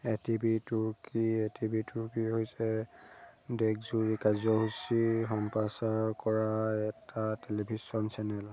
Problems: none marked